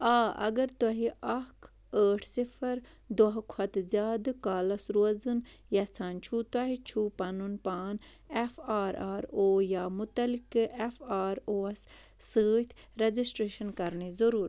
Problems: none marked